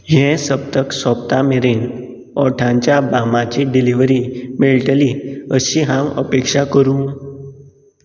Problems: constant background noise